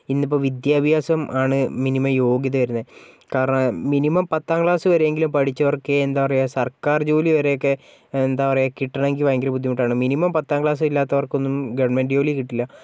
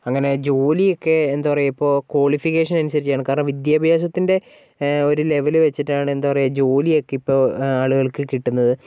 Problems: background sounds at intervals